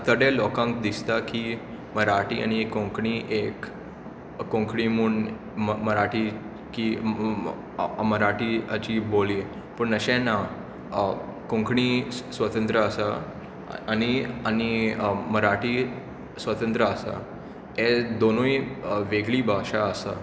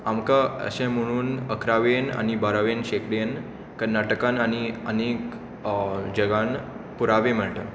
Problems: constant background noise, echo